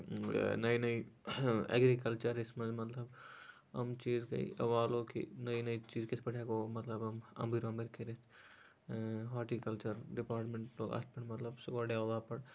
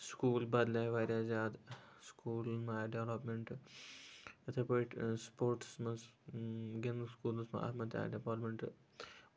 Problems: constant background noise